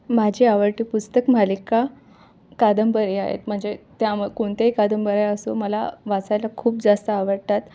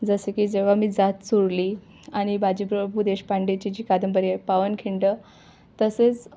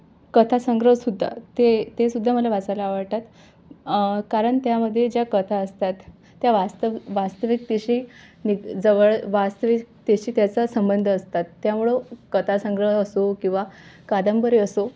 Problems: none marked